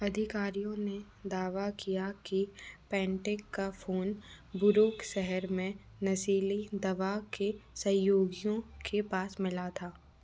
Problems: none marked